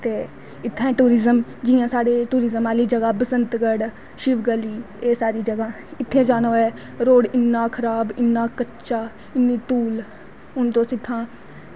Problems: constant background noise